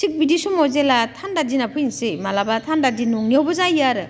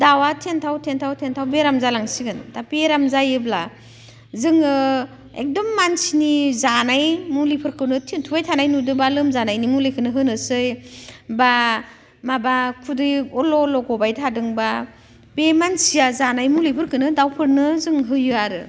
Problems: none marked